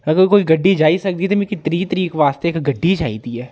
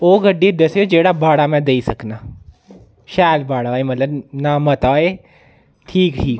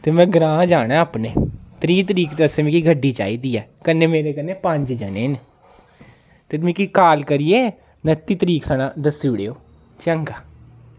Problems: background conversations at intervals